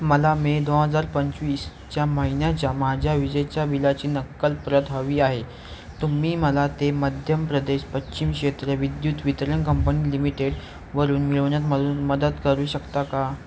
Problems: constant background noise